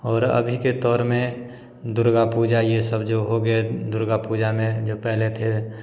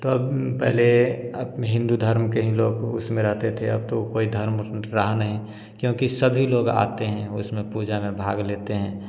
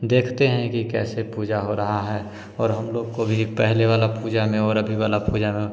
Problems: constant background noise